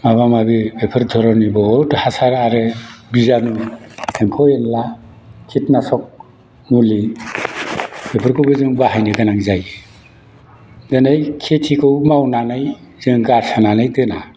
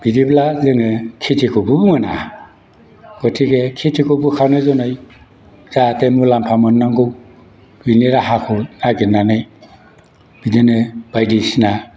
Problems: constant background noise